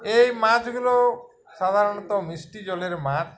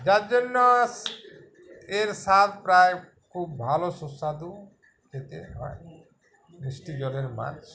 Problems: constant background noise, continuous background conversations